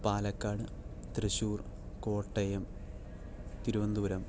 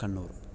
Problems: low volume